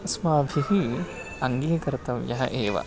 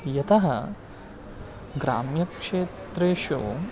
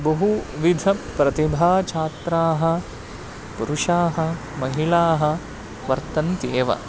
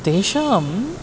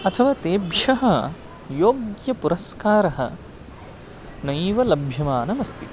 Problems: constant background noise, continuous background conversations